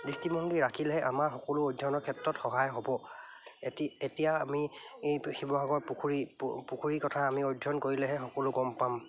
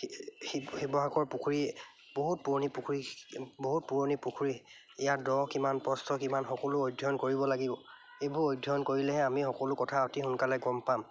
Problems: none marked